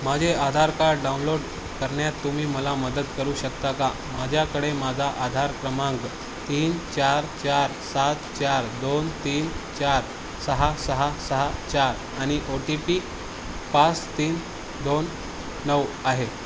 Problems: constant background noise